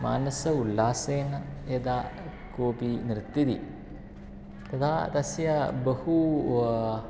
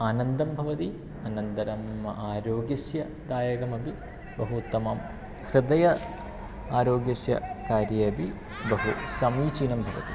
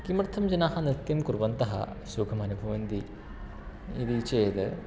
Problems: constant background noise